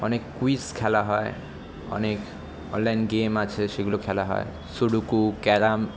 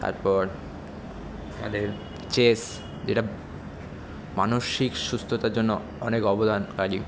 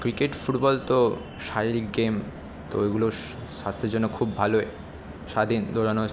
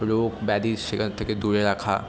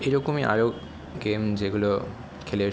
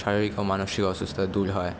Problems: none marked